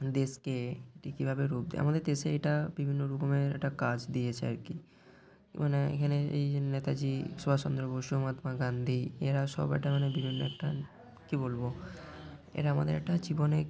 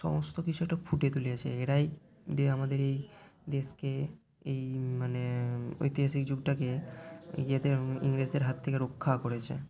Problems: none marked